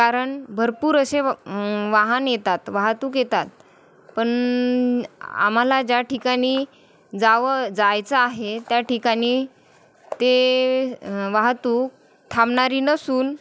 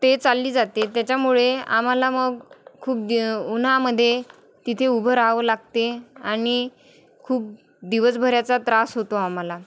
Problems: none marked